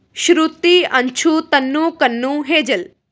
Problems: none marked